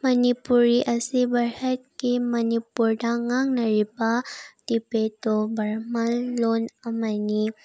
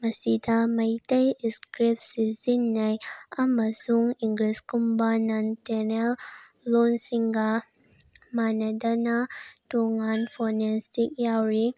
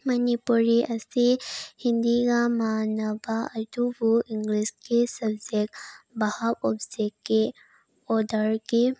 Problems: background sounds at intervals